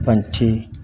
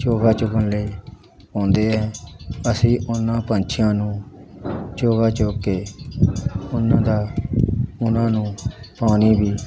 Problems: constant background noise, continuous background conversations